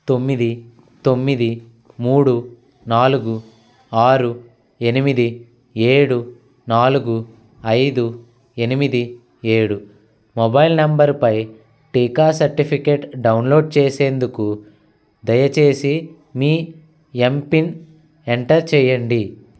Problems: constant background noise